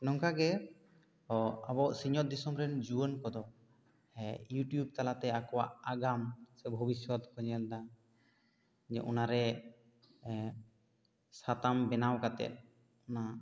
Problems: none marked